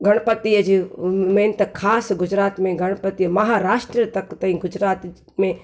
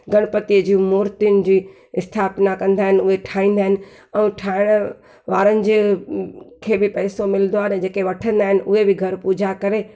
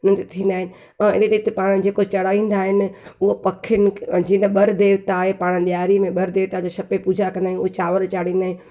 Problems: none marked